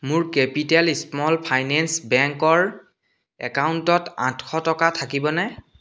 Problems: none marked